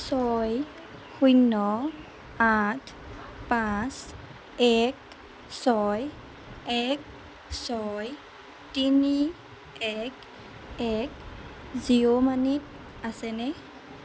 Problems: constant background noise